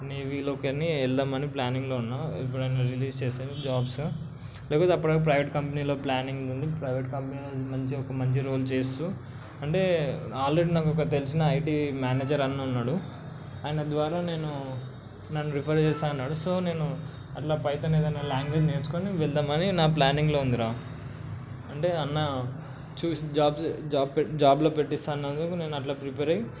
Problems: constant background noise